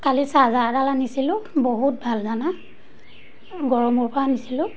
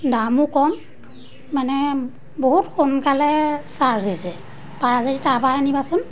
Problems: none marked